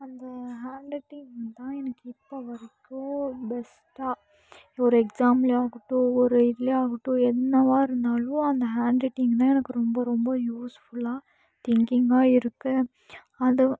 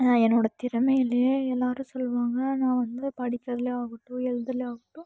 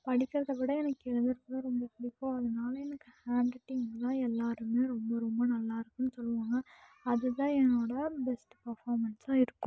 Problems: low volume